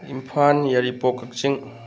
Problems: none marked